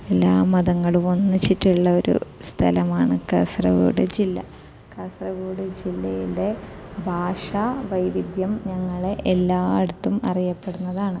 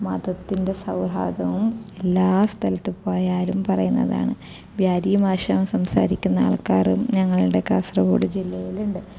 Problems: low volume